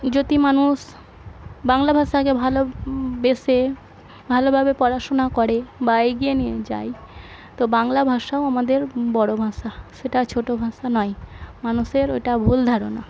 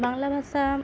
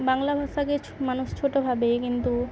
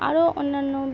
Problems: constant background noise, continuous background conversations